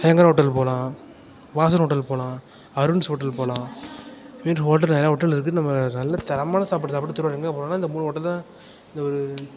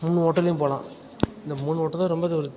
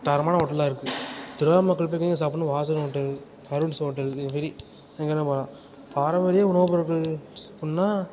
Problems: constant background noise, background conversations at intervals